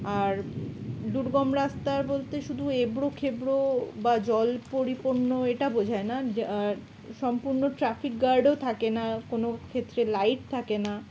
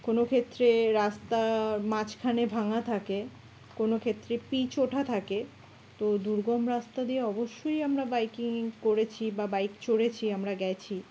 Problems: none marked